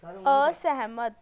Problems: background conversations at intervals